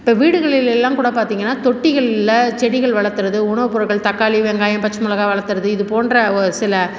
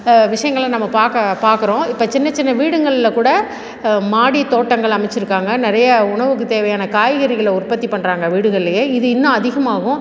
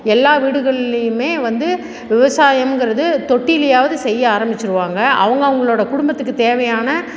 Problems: background sounds at intervals